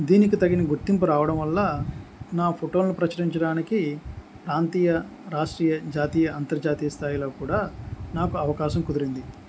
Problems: background conversations at intervals